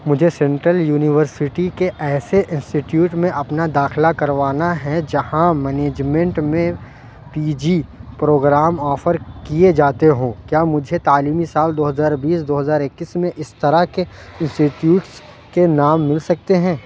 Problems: none marked